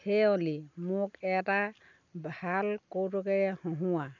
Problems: constant background noise